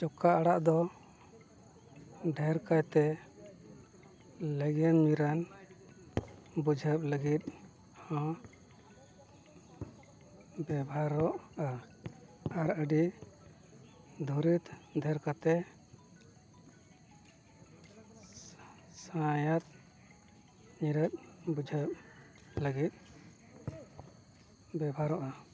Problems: constant background noise, low volume